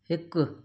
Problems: none marked